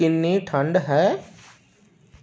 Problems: background sounds at intervals